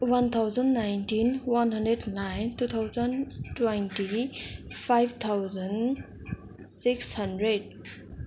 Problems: constant background noise